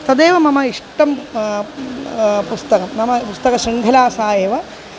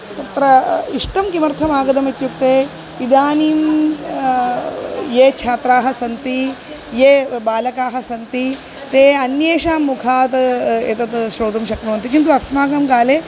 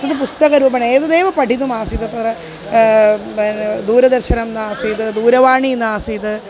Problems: constant background noise